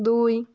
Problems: none marked